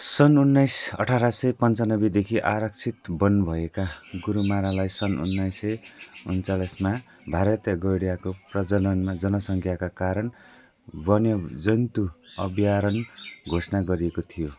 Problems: constant background noise, continuous background conversations